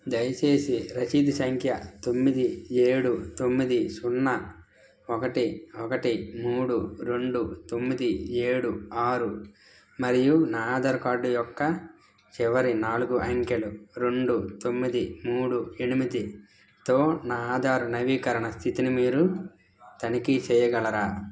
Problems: constant background noise